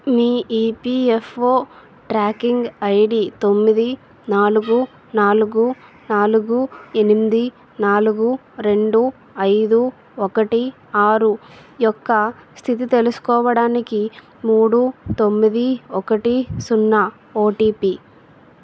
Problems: constant background noise